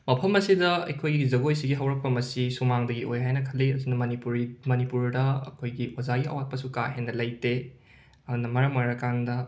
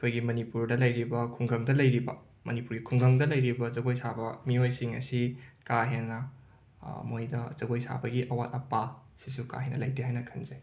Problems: none marked